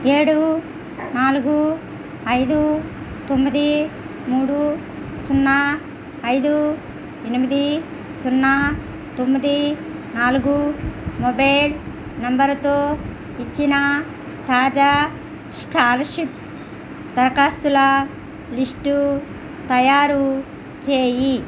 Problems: constant background noise